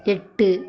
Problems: none marked